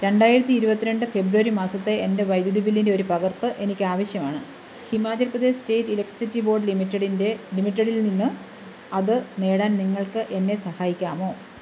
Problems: constant background noise